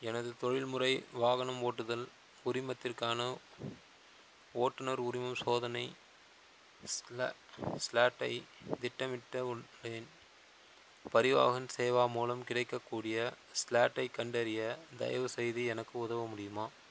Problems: constant background noise